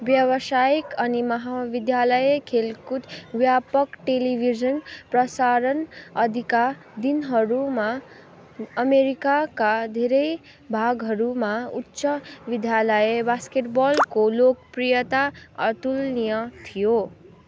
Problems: background sounds at intervals